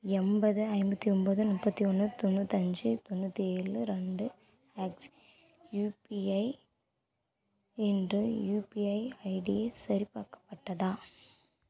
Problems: low volume